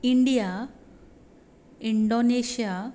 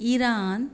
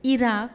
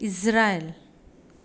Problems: none marked